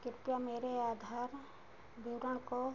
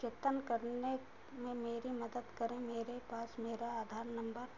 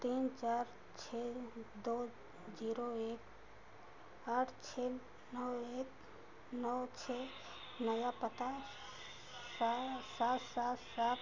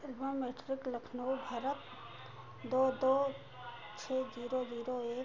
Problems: constant background noise